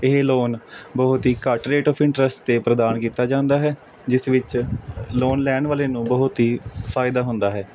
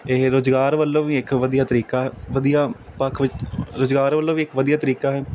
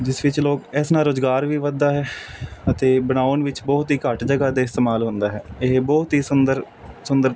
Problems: constant background noise